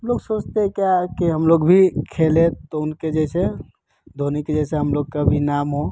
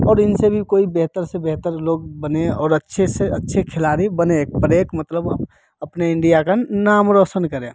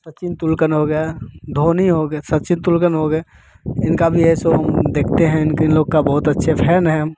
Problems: constant background noise